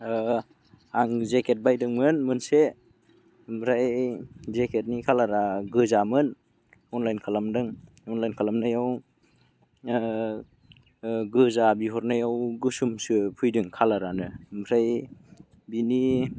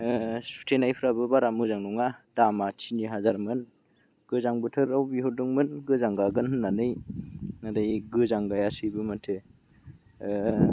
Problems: none marked